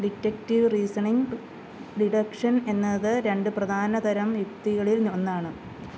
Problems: constant background noise